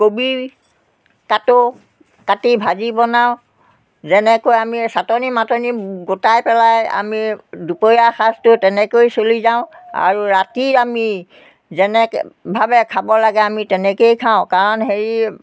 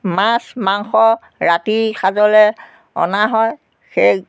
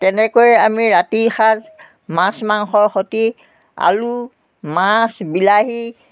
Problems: none marked